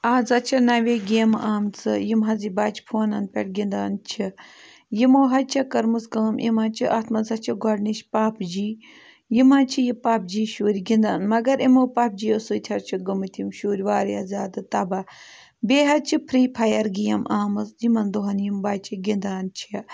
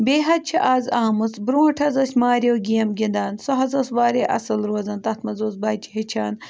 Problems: background sounds at intervals